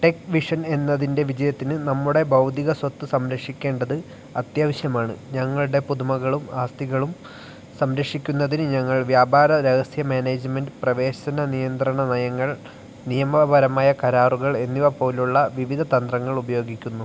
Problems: none marked